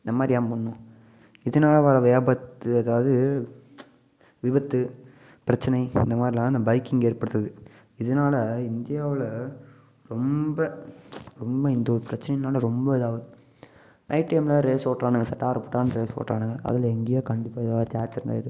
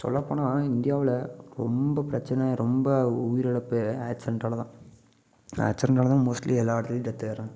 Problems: none marked